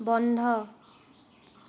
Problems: constant background noise